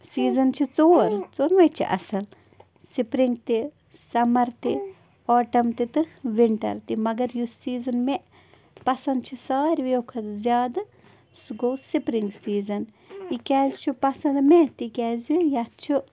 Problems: background sounds at intervals, background conversations at intervals